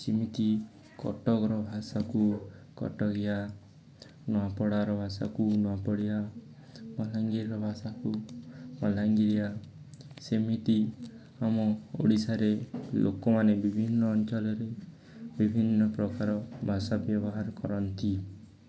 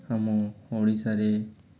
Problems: background sounds at intervals, continuous background conversations